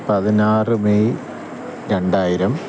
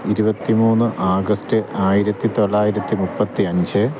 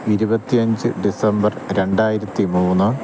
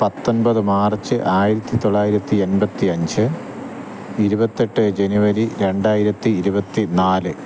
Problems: constant background noise